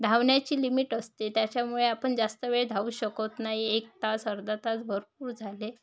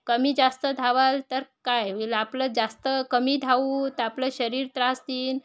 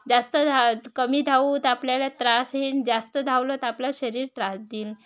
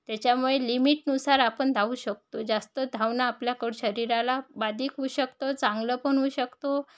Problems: none marked